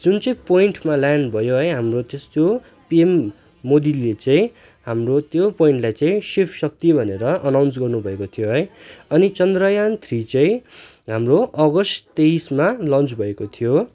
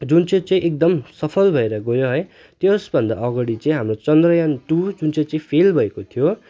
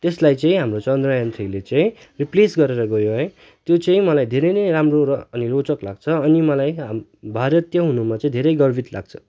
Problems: constant background noise